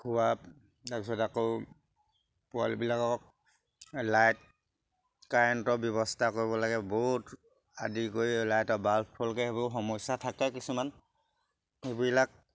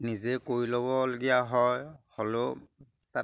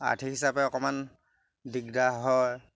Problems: background sounds at intervals